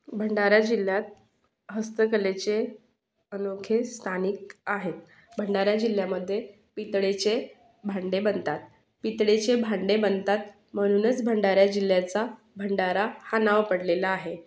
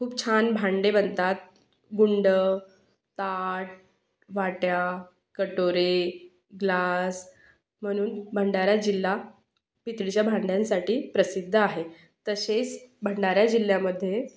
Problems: none marked